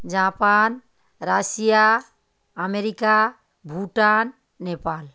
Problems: constant background noise